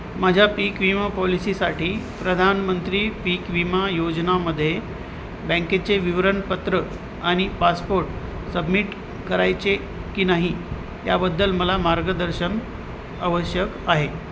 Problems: constant background noise